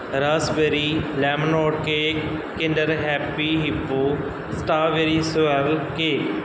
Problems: background sounds at intervals